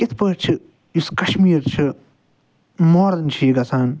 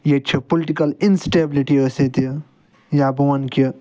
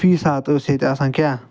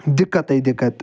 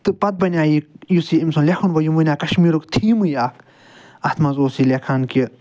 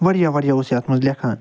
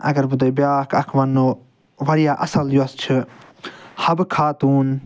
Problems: none marked